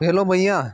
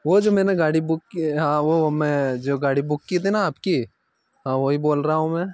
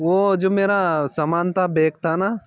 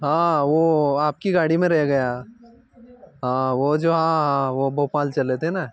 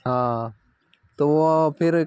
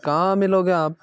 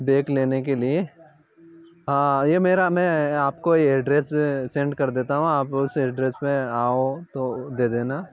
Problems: none marked